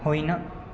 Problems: none marked